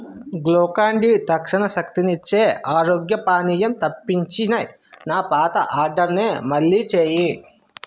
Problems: constant background noise, background conversations at intervals